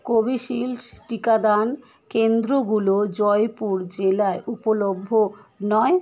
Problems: continuous background conversations